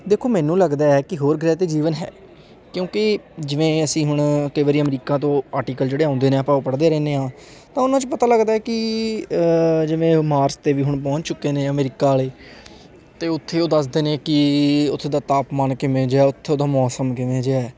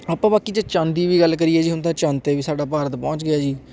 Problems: constant background noise, background conversations at intervals